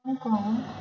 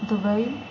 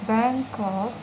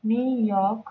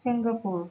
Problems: background sounds at intervals